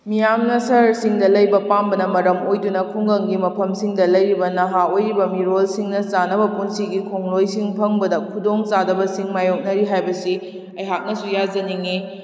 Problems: echo